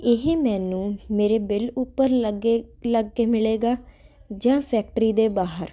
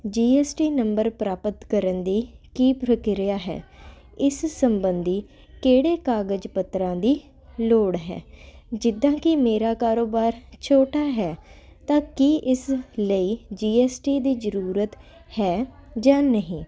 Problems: none marked